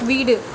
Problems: constant background noise